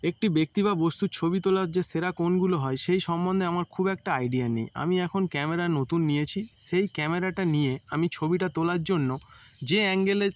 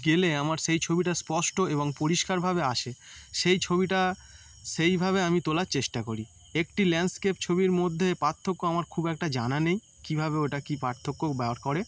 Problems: none marked